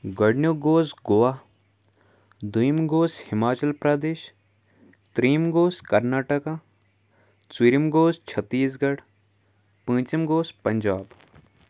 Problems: background sounds at intervals